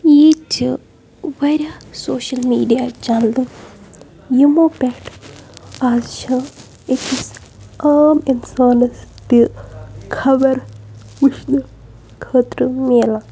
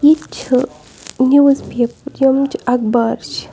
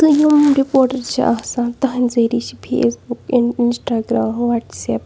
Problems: background sounds at intervals, low volume